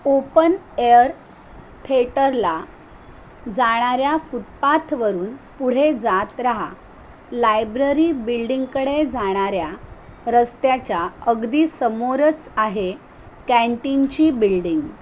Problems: constant background noise